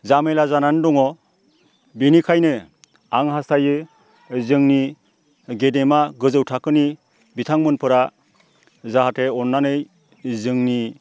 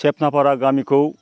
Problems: constant background noise